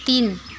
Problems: constant background noise